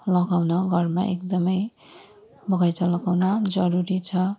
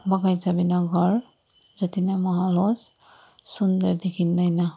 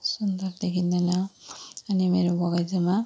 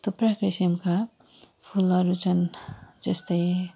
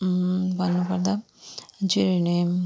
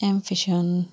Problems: none marked